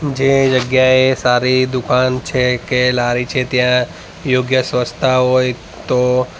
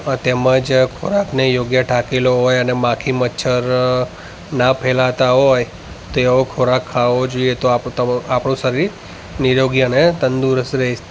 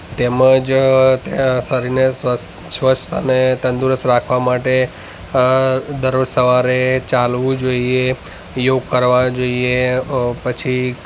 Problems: constant background noise, background conversations at intervals